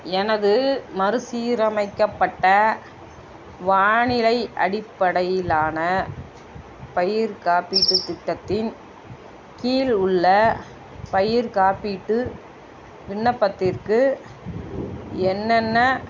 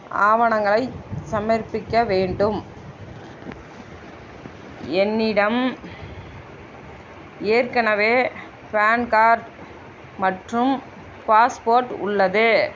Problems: constant background noise